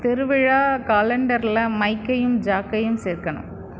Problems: constant background noise